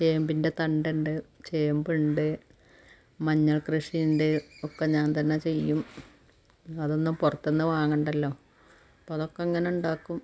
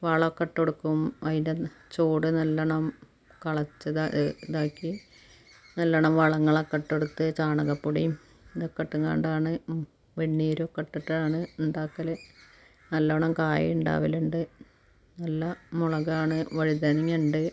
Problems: background sounds at intervals